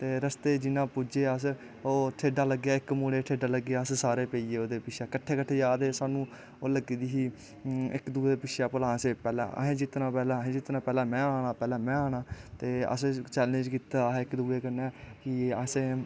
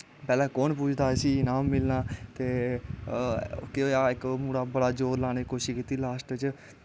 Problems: constant background noise